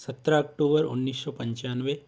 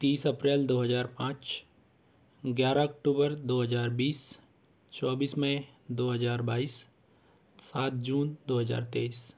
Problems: constant background noise